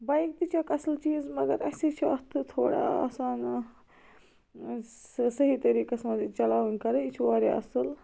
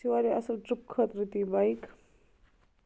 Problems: none marked